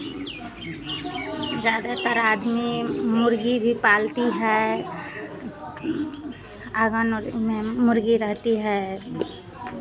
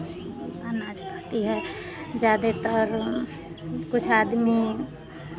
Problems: constant background noise